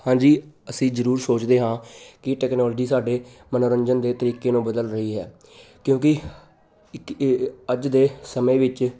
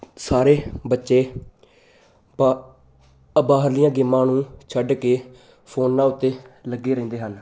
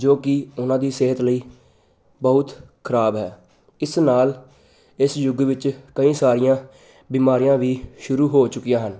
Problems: constant background noise